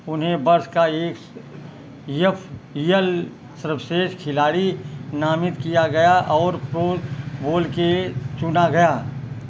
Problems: constant background noise